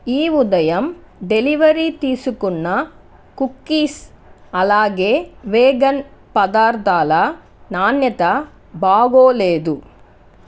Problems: constant background noise